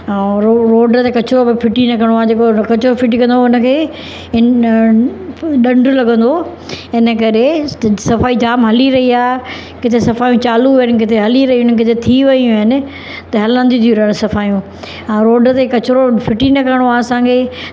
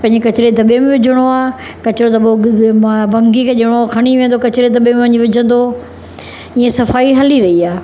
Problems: constant background noise